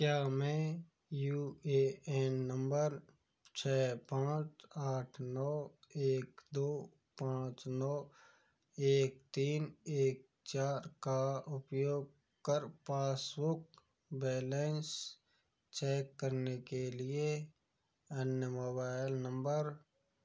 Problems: background sounds at intervals